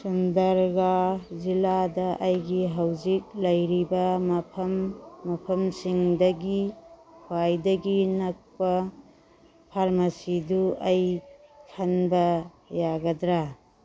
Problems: background sounds at intervals